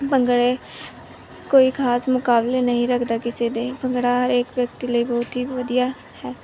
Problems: background sounds at intervals